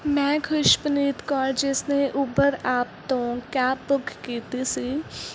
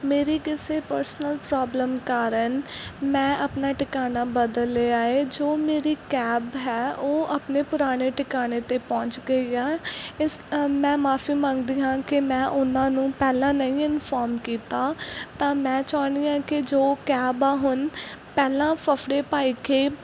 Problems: none marked